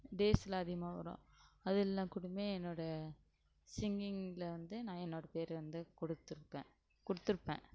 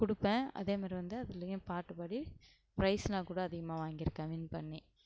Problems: low volume